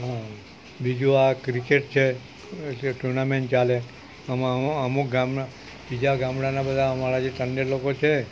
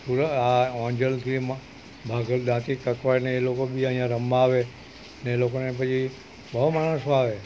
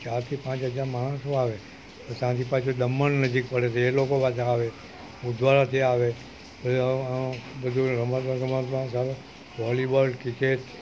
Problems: none marked